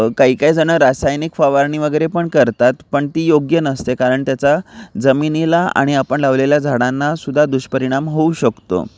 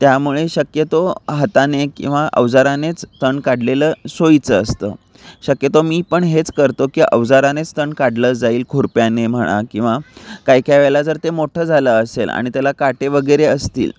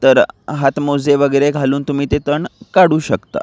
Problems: none marked